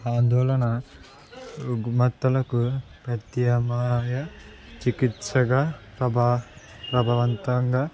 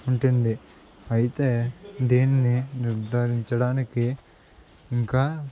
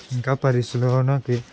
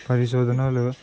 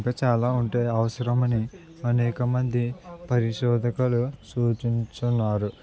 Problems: constant background noise